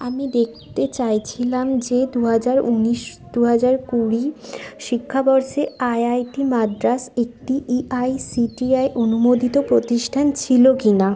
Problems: constant background noise, continuous background conversations